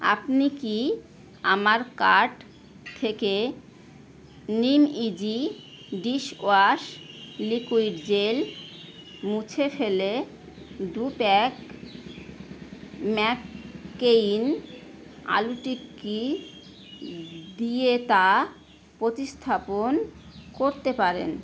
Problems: constant background noise